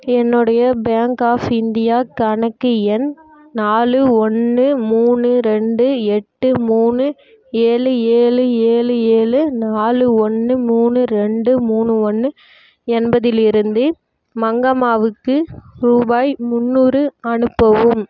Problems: none marked